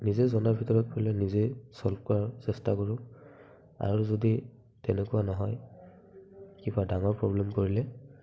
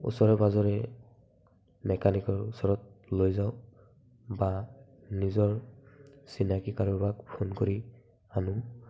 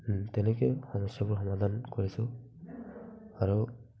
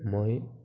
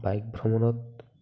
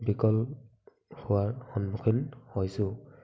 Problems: background sounds at intervals, background conversations at intervals, low volume